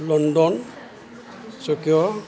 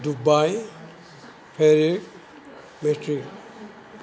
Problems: none marked